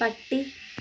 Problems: constant background noise